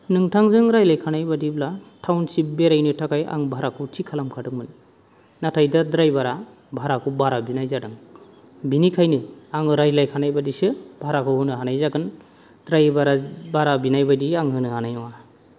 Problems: low volume